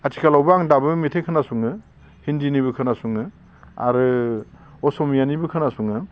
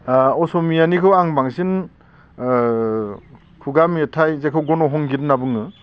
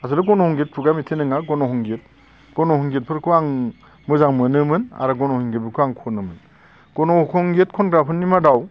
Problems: none marked